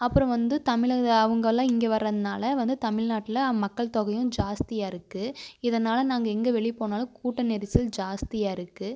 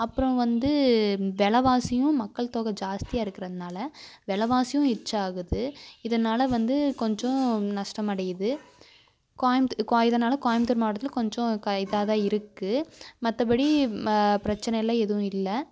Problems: constant background noise